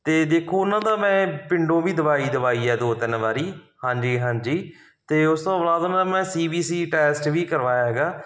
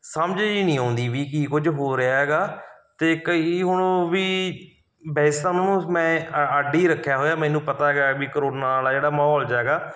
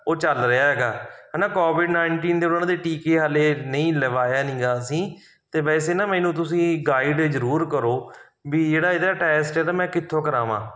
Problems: none marked